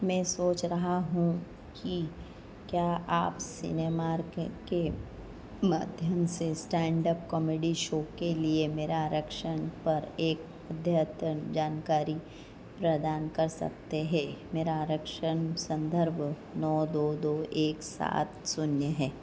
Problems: low volume